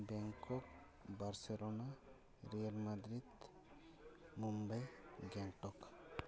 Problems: continuous background conversations